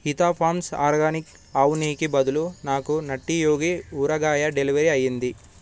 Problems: background sounds at intervals